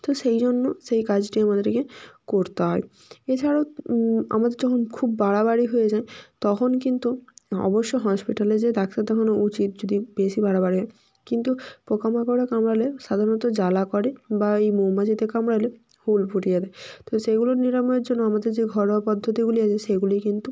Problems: background sounds at intervals